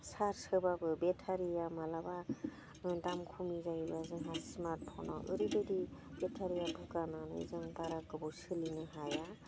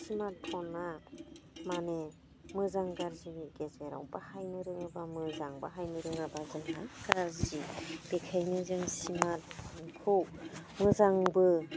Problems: none marked